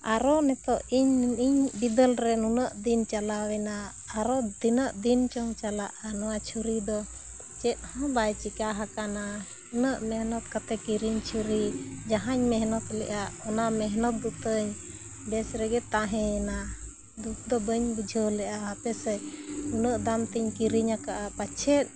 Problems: none marked